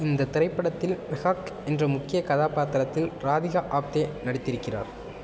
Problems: constant background noise